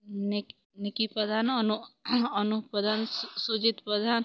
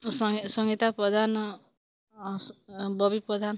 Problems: background sounds at intervals